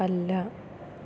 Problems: none marked